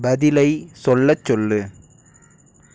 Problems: none marked